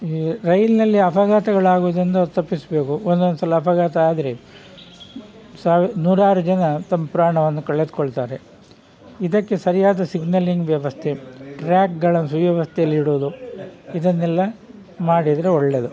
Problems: background sounds at intervals